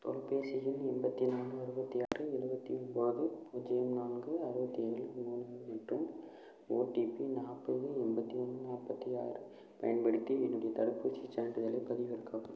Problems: low volume